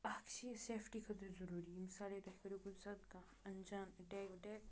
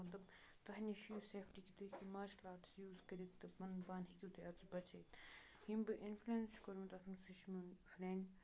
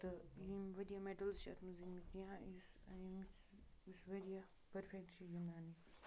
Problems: background sounds at intervals, low volume